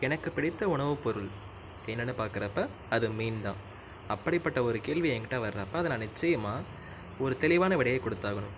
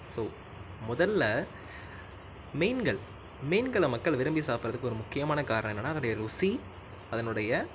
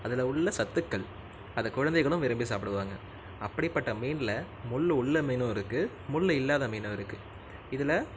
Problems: none marked